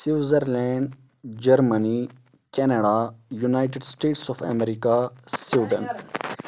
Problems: background sounds at intervals